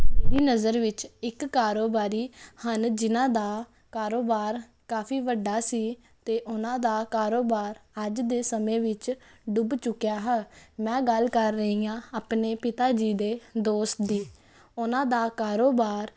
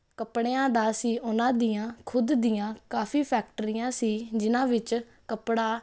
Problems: constant background noise